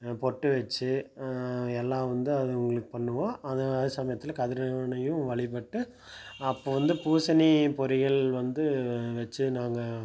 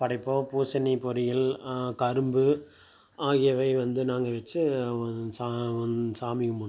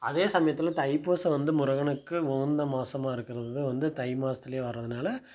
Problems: none marked